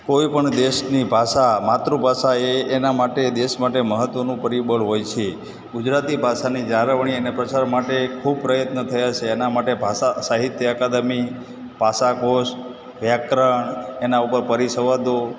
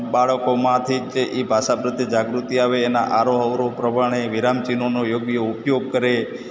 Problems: constant background noise